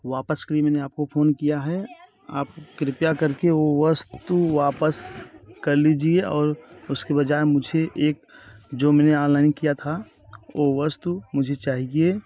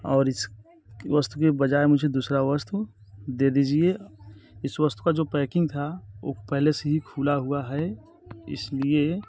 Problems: none marked